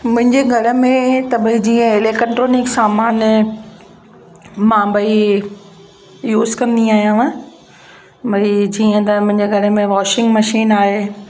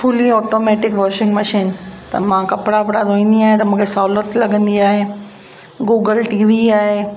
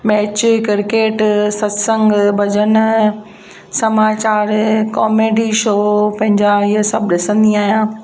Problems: constant background noise, echo